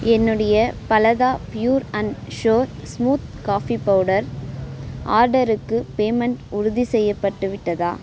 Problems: background sounds at intervals